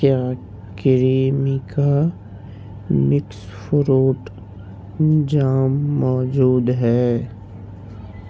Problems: constant background noise, low volume